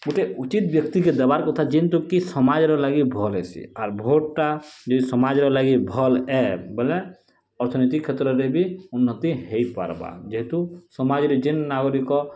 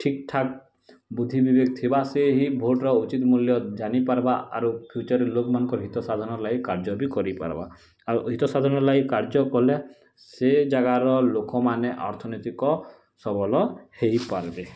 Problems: background sounds at intervals